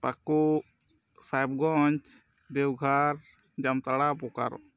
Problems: background sounds at intervals